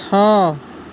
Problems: constant background noise